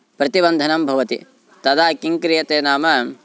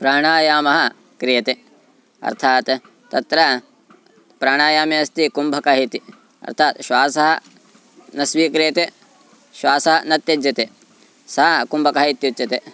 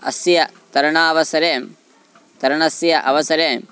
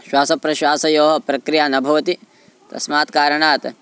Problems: constant background noise